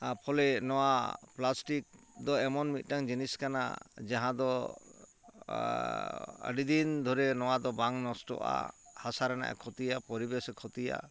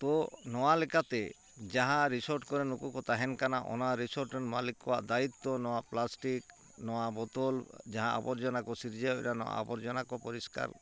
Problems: constant background noise